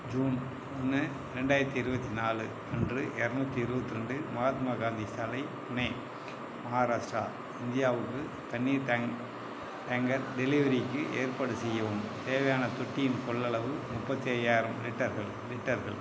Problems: none marked